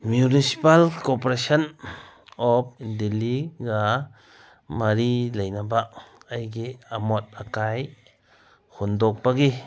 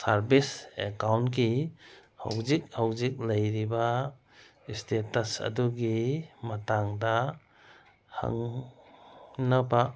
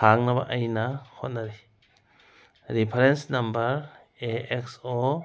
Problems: background sounds at intervals